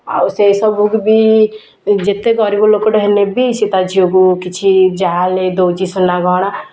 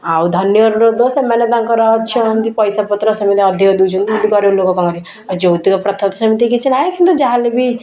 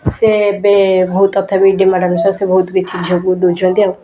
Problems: none marked